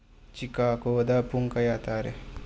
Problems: low volume